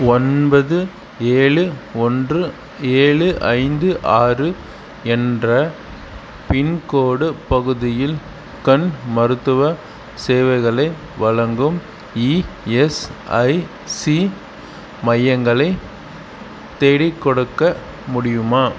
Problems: none marked